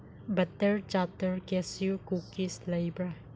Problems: low volume